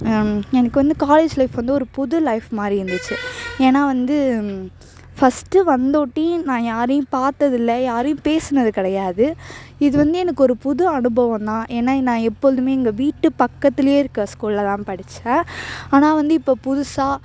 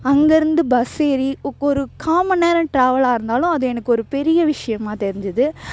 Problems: background sounds at intervals, background conversations at intervals